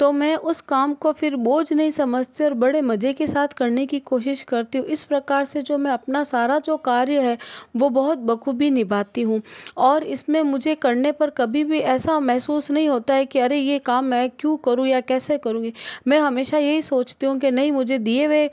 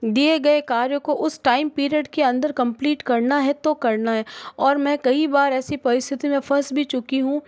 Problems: constant background noise